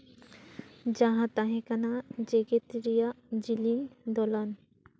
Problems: none marked